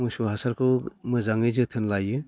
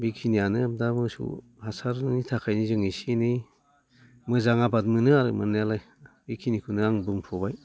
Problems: none marked